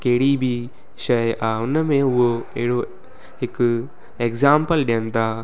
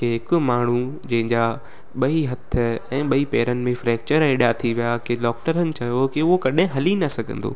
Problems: constant background noise